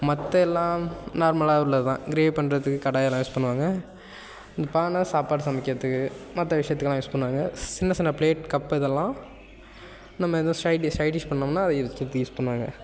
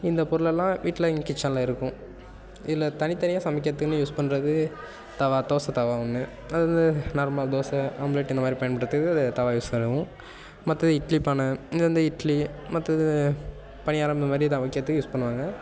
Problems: none marked